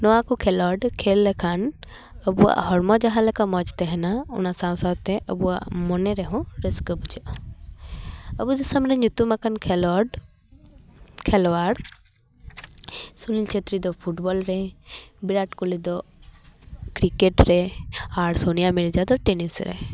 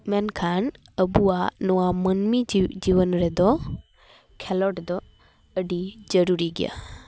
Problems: background sounds at intervals